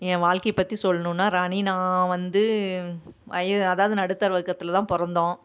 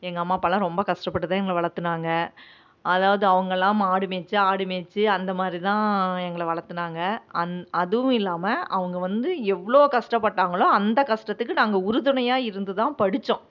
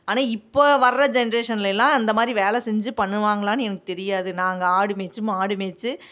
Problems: none marked